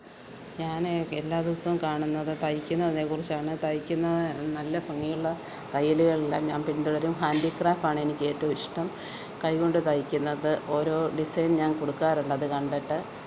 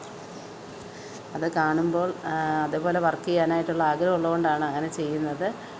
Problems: background sounds at intervals